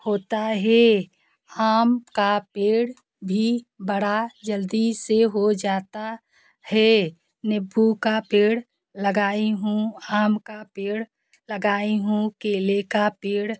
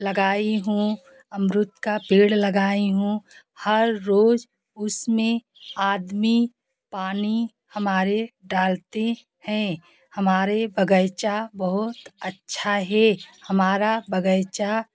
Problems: constant background noise